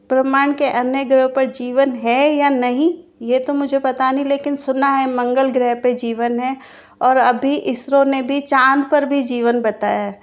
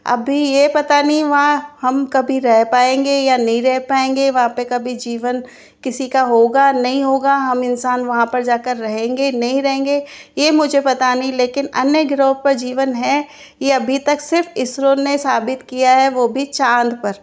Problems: constant background noise